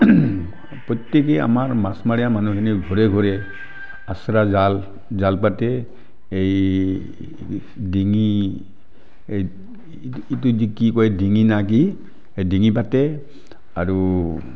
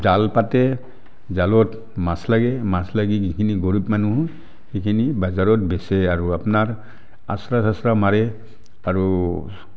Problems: background sounds at intervals